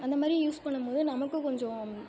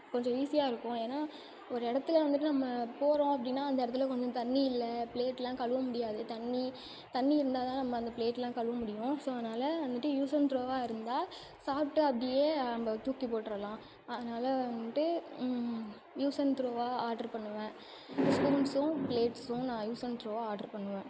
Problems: constant background noise